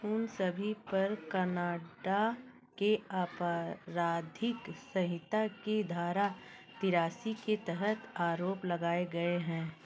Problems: constant background noise